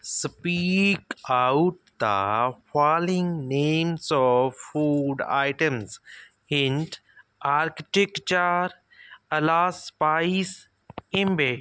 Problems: background sounds at intervals